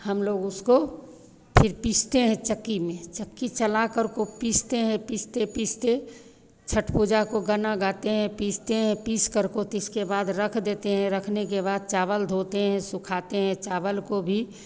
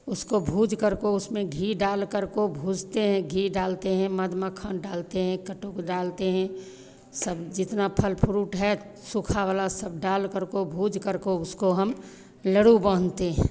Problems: constant background noise, background conversations at intervals